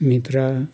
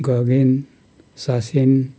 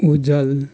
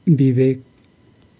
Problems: background sounds at intervals